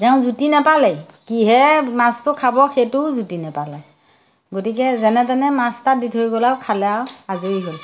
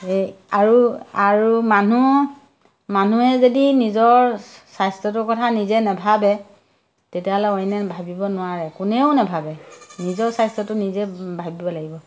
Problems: none marked